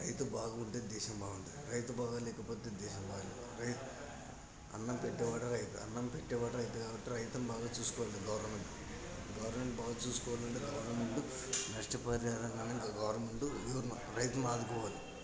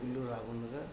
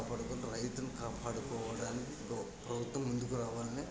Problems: constant background noise, continuous background conversations, low volume